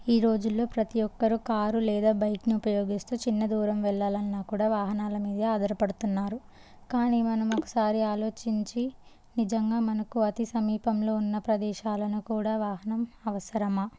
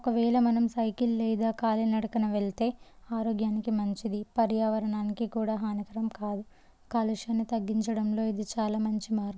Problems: low volume